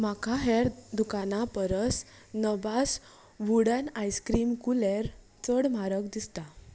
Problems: constant background noise